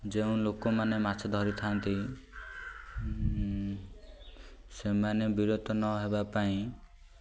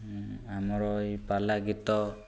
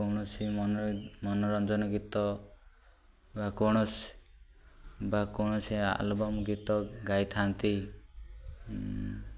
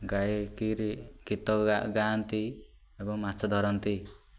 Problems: none marked